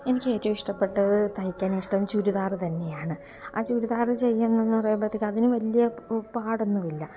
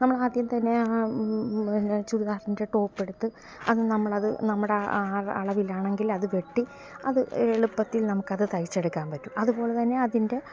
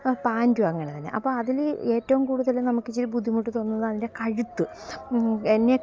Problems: constant background noise